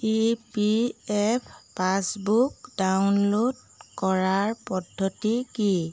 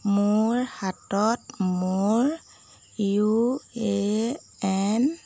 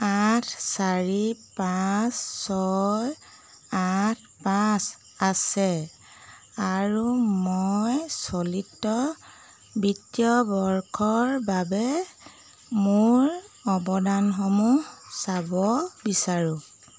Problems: none marked